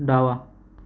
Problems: none marked